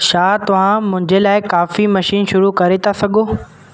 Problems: constant background noise, echo